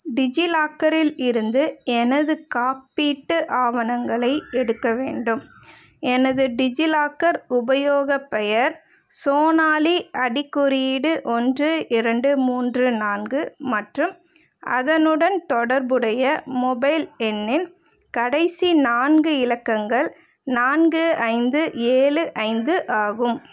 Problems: none marked